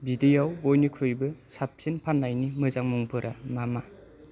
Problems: none marked